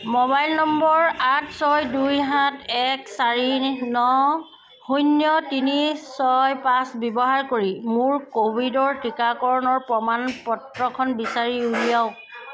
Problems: constant background noise